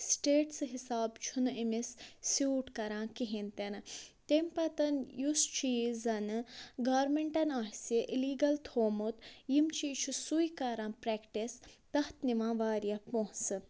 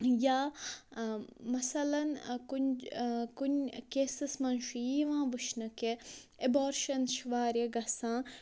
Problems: low volume